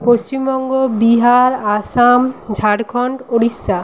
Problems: constant background noise